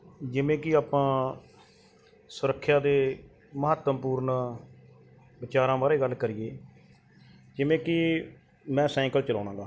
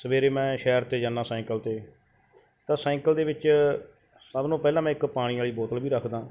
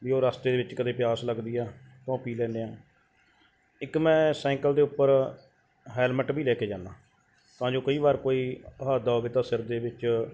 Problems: background sounds at intervals